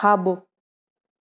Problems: none marked